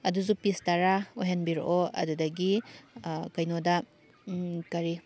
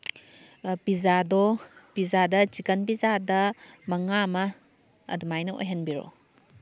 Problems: background sounds at intervals